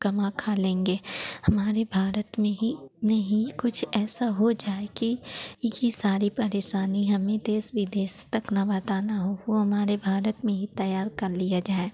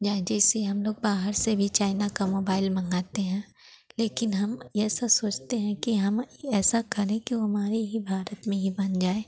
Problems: none marked